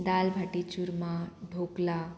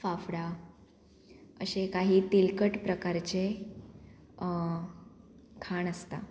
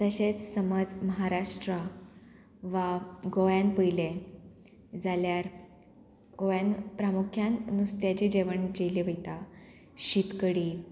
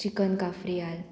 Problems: none marked